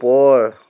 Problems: none marked